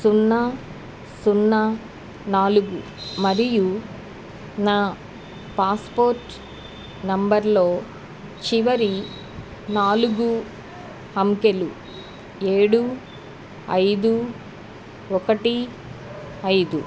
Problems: none marked